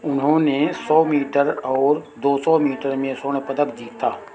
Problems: none marked